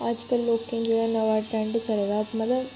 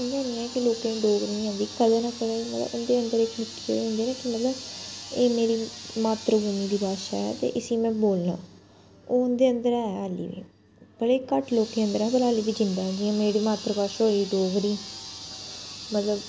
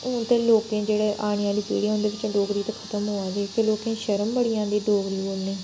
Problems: constant background noise